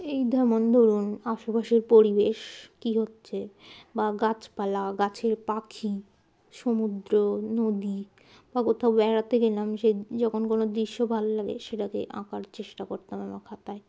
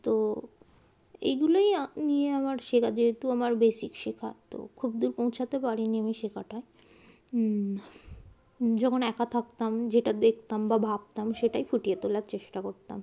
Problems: none marked